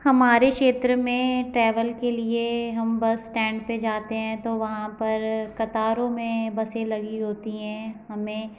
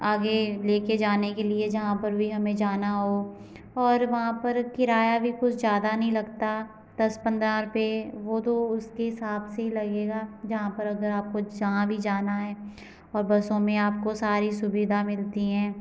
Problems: none marked